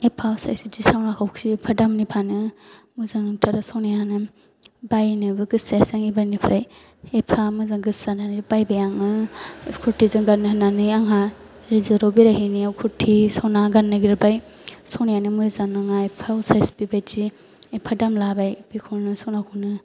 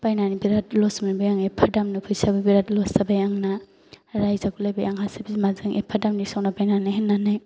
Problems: none marked